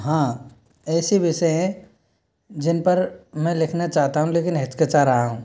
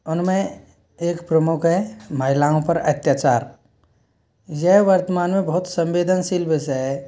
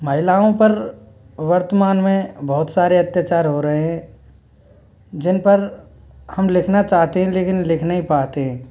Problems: background sounds at intervals